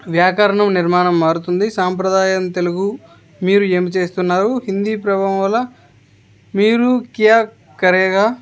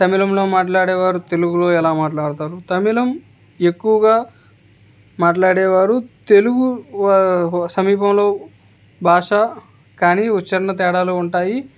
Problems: background conversations at intervals